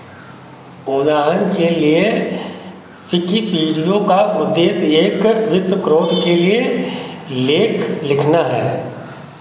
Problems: none marked